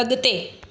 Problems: echo